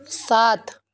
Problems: constant background noise